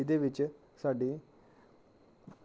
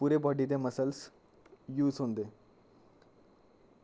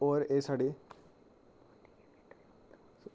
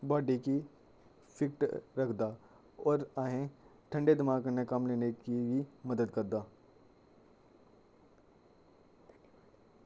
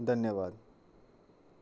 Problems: low volume